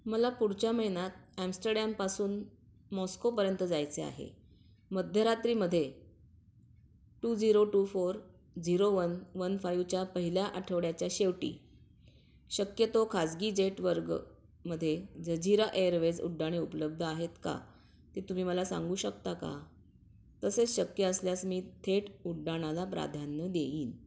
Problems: none marked